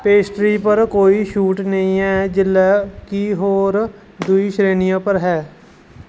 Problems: constant background noise